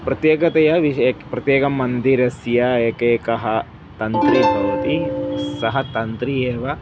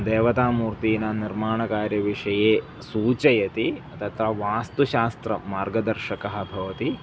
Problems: constant background noise